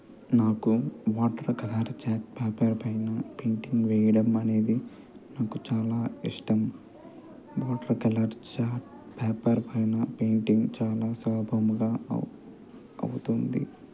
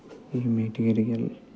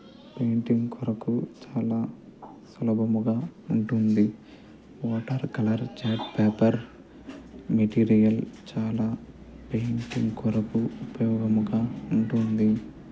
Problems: background conversations at intervals, low volume